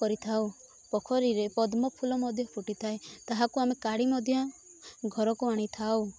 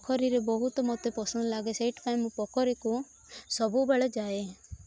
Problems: constant background noise, continuous background conversations